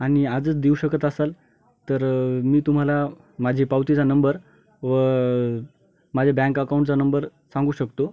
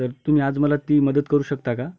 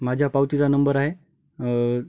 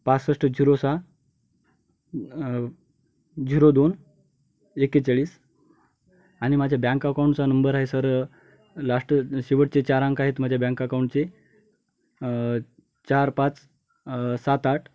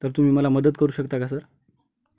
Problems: none marked